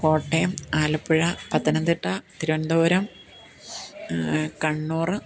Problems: background conversations at intervals